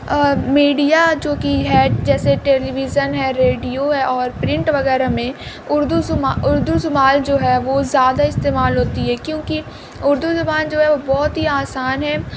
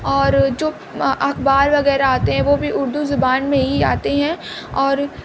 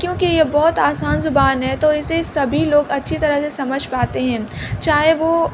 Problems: constant background noise